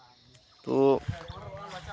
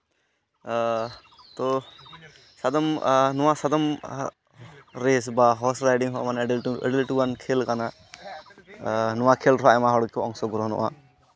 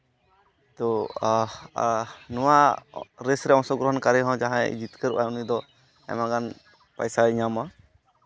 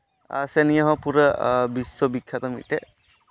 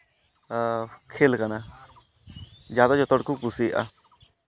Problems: background sounds at intervals